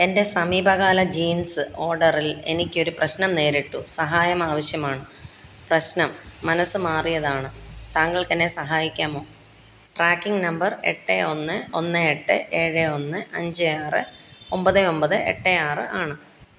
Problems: none marked